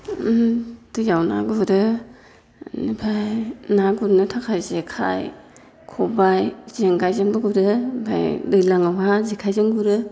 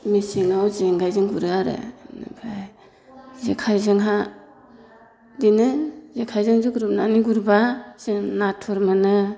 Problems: constant background noise